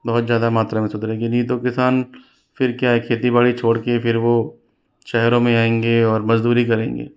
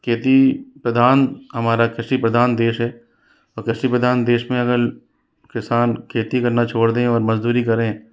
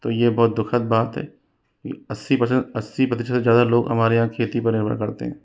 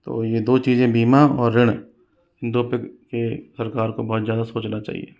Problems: none marked